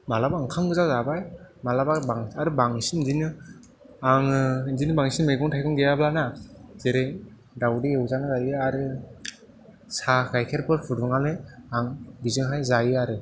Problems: background sounds at intervals